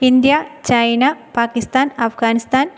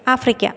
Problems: none marked